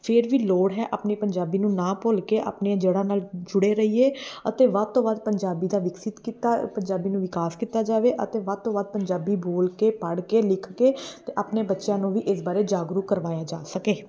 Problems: background sounds at intervals